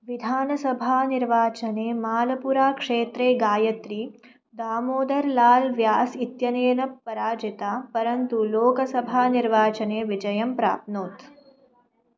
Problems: background sounds at intervals